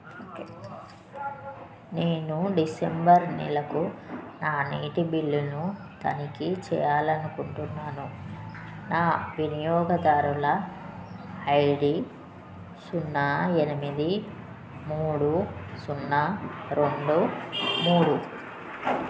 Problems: constant background noise